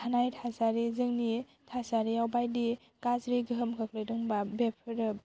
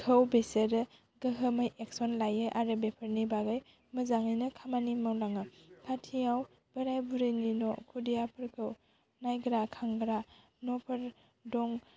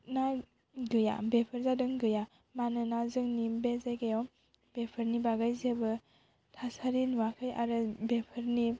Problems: none marked